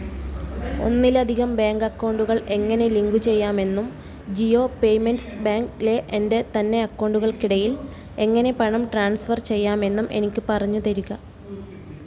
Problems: none marked